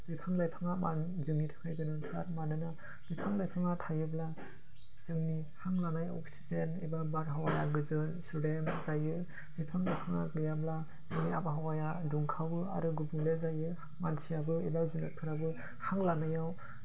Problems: constant background noise